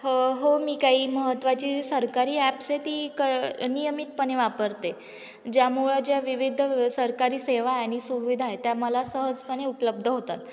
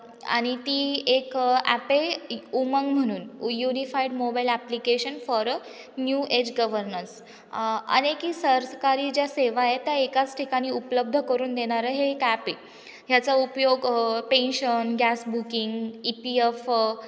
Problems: none marked